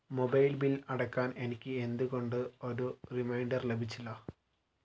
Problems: low volume